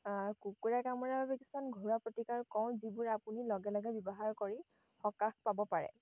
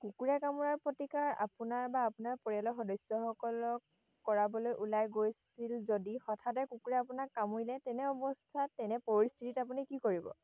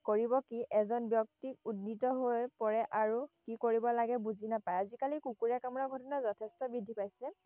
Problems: background sounds at intervals